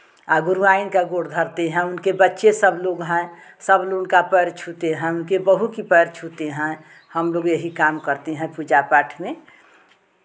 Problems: none marked